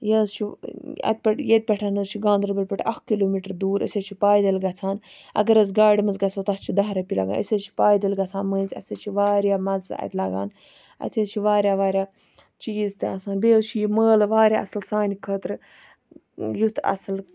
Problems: none marked